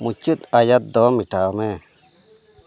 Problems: constant background noise